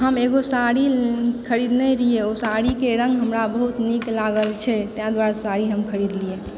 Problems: none marked